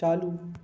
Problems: constant background noise